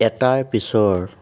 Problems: none marked